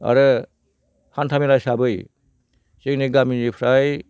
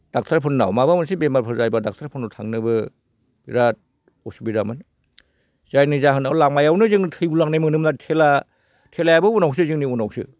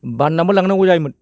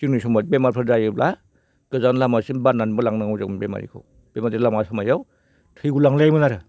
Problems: none marked